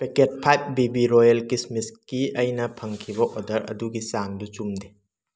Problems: background sounds at intervals